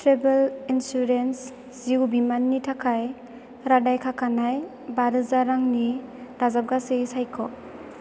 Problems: constant background noise